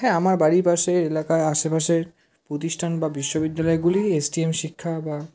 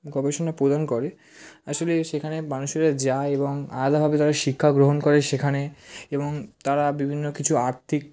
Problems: background conversations at intervals